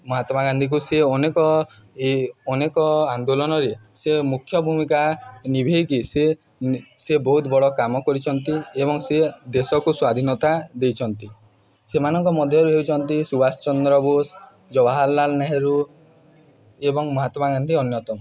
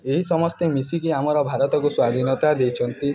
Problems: background conversations at intervals